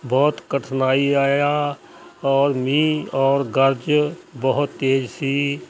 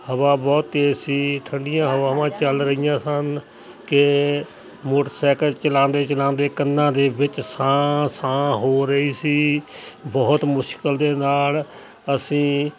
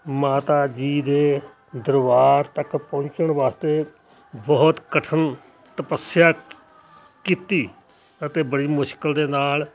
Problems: constant background noise, background conversations at intervals